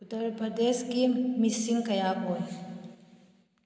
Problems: low volume